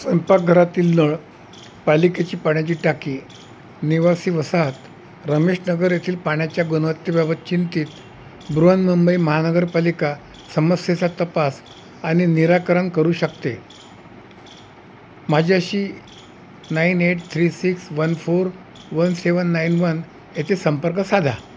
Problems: constant background noise